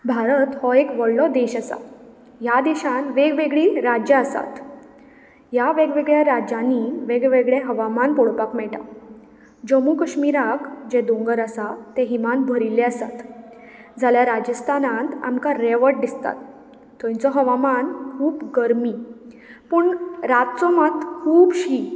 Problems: background sounds at intervals